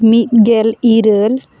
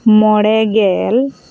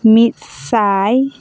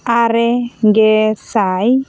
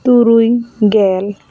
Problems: constant background noise